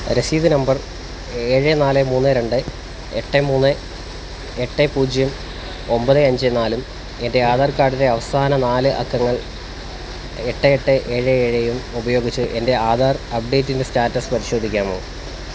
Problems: none marked